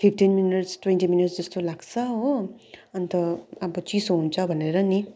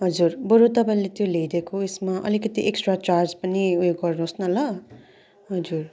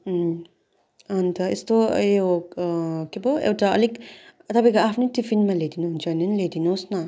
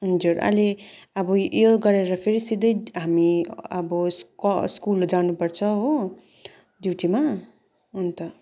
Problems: constant background noise, continuous background conversations